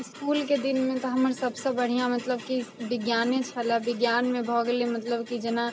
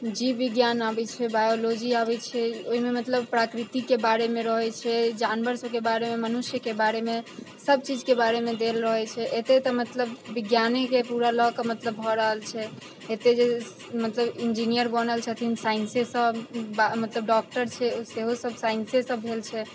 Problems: constant background noise